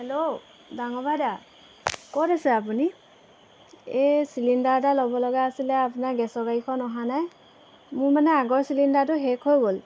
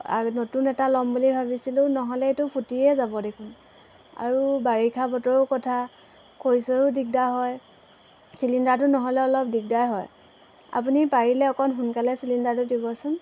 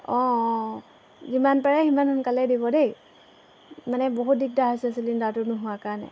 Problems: constant background noise